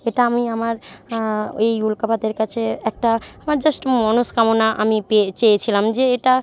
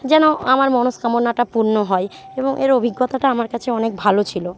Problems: continuous background conversations